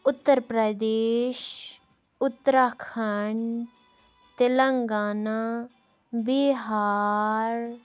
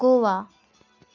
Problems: background sounds at intervals